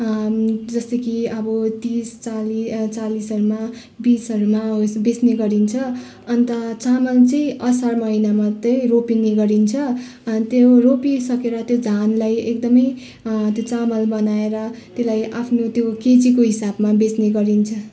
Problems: constant background noise